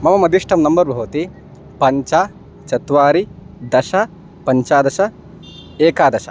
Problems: constant background noise